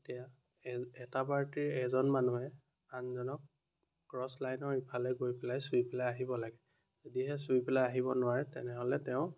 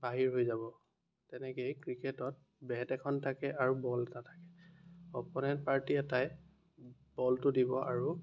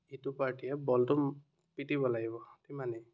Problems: continuous background conversations